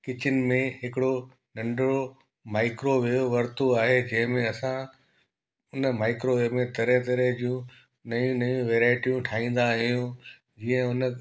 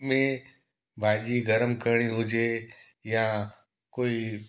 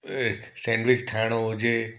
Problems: background sounds at intervals, echo